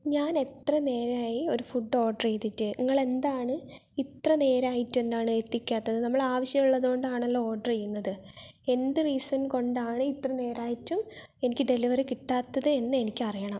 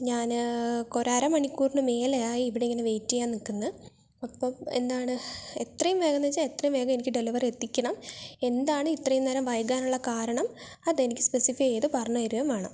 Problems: none marked